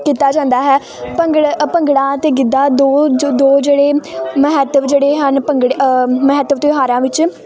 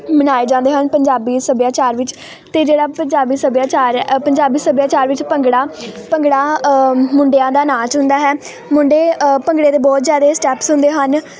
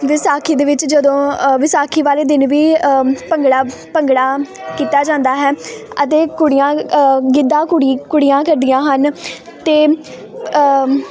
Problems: constant background noise